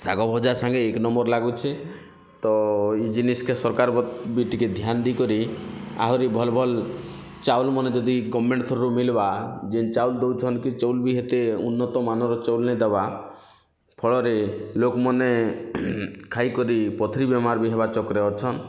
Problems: constant background noise